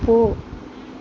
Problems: constant background noise